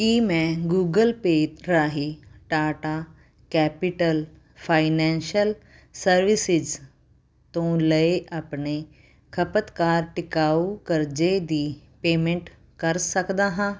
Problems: none marked